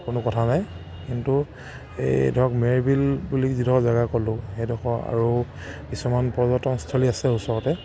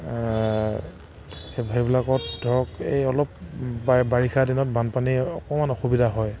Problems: none marked